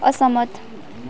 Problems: continuous background conversations